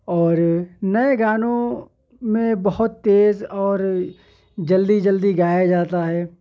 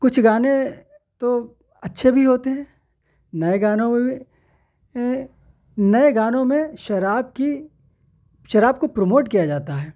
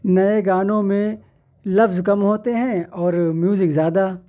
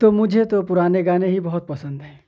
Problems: none marked